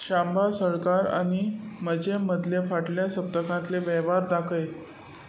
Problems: continuous background conversations